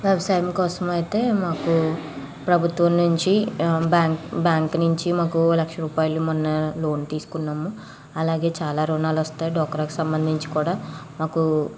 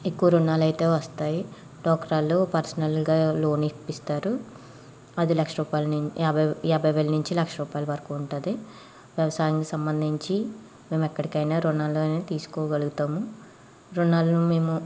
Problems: background sounds at intervals, background conversations at intervals